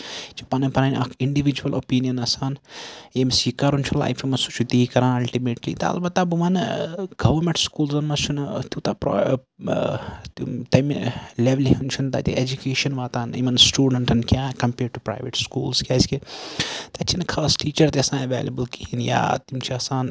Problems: background sounds at intervals